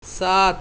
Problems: constant background noise